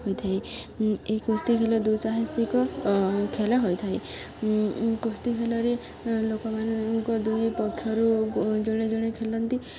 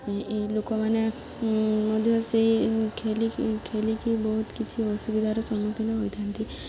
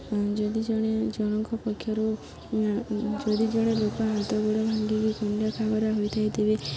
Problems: constant background noise, continuous background conversations